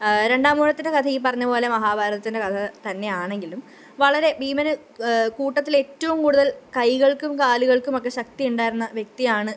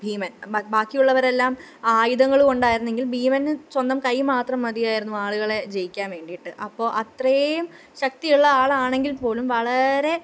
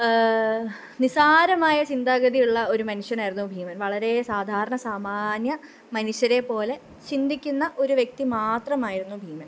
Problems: none marked